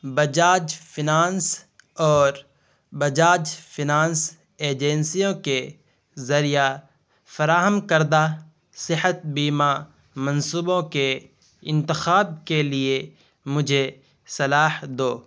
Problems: constant background noise